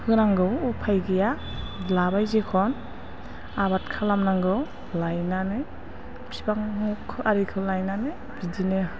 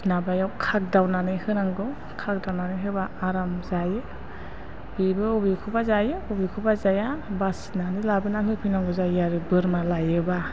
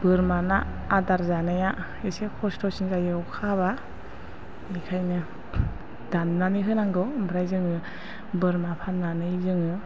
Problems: constant background noise